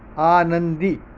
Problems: constant background noise